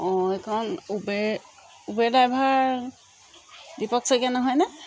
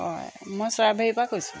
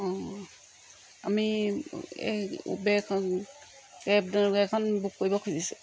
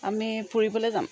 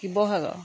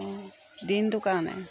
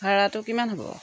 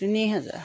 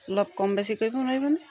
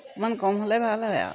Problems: background sounds at intervals